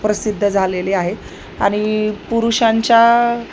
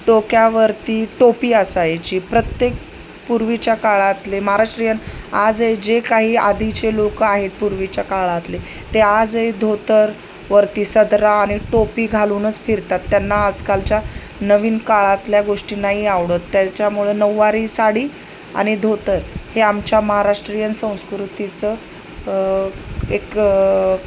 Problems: none marked